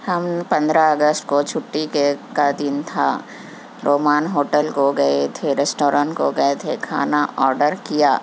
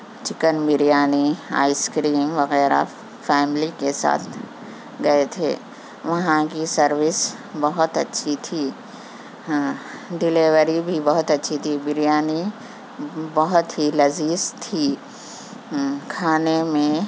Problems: constant background noise